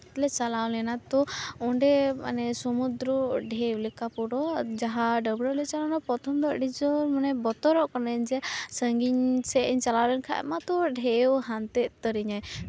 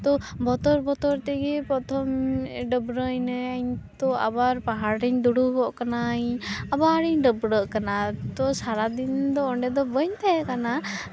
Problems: constant background noise, background conversations at intervals